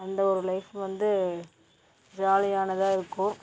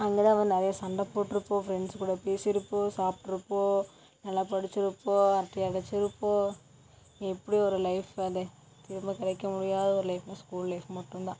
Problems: none marked